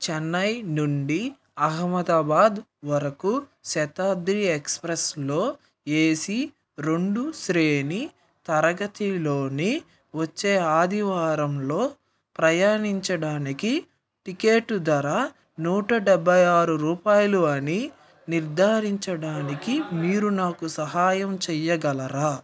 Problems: background conversations at intervals